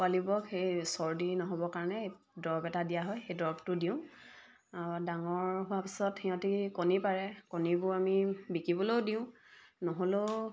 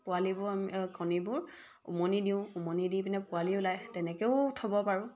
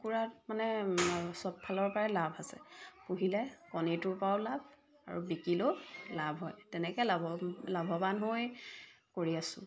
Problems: background sounds at intervals